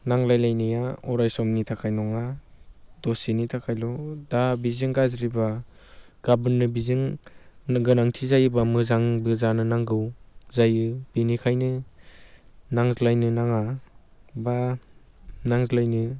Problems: constant background noise